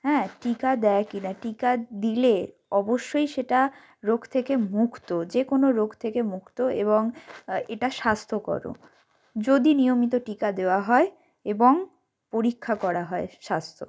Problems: background sounds at intervals